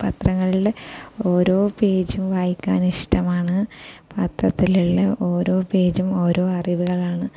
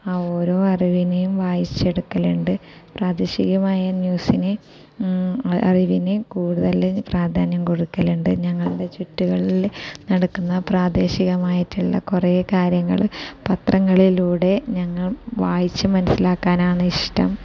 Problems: constant background noise, low volume